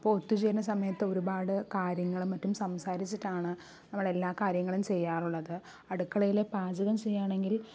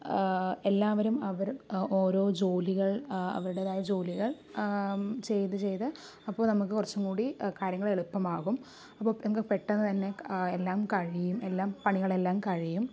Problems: none marked